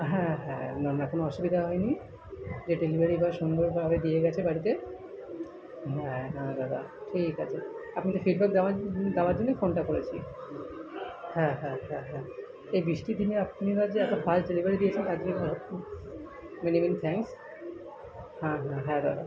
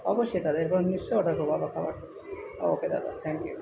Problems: continuous background conversations